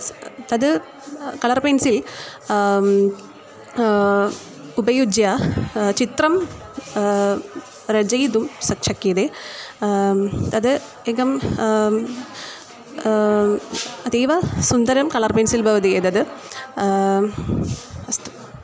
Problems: constant background noise